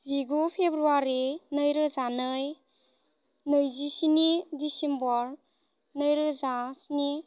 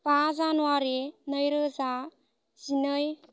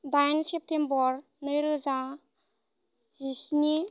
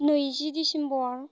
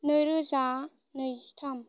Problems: constant background noise